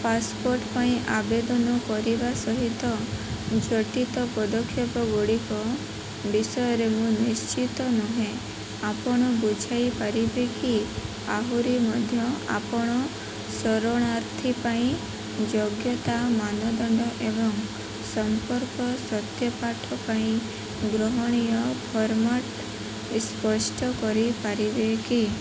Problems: constant background noise